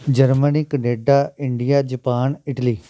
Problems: background sounds at intervals